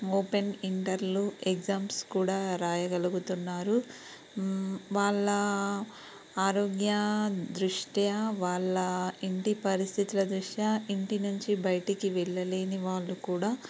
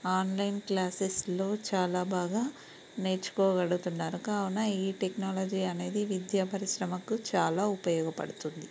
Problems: background sounds at intervals